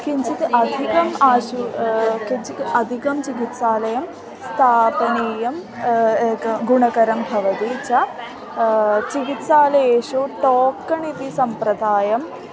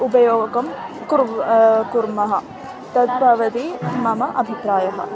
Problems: constant background noise, continuous background conversations